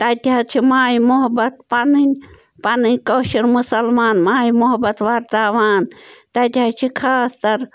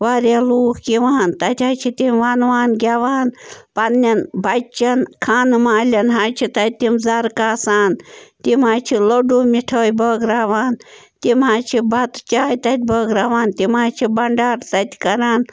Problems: background sounds at intervals